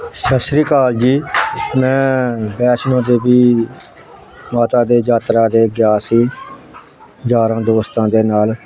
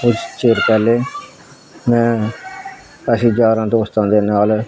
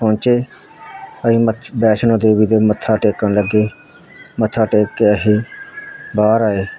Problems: constant background noise